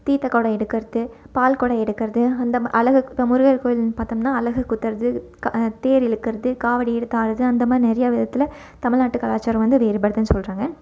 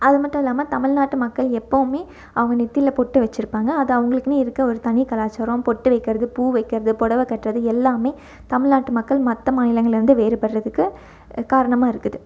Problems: none marked